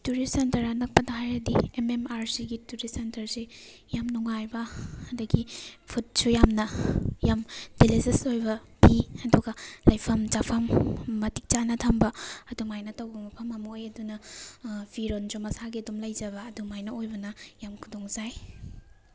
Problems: background sounds at intervals